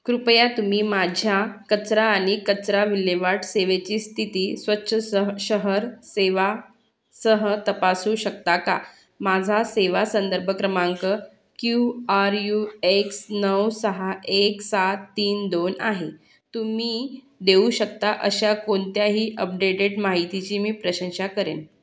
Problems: none marked